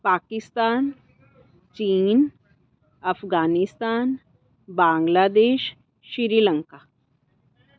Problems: background sounds at intervals, background conversations at intervals